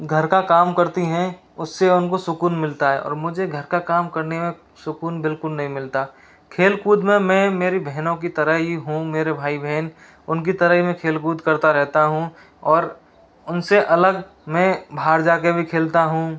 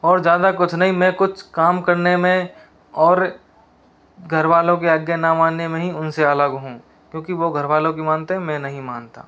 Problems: none marked